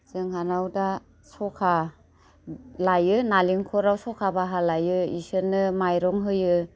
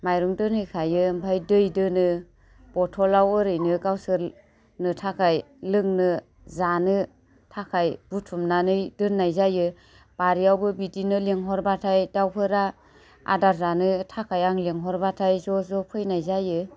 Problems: none marked